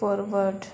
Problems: constant background noise